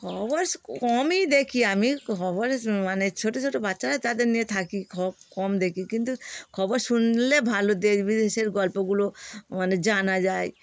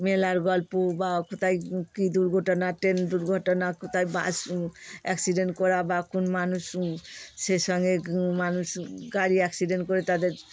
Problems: constant background noise